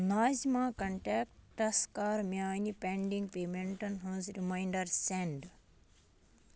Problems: constant background noise